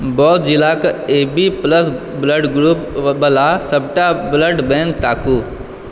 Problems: none marked